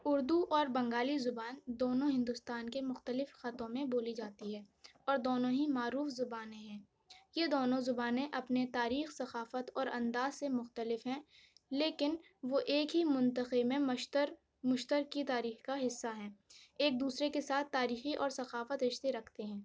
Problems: none marked